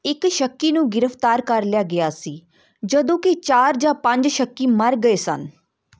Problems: none marked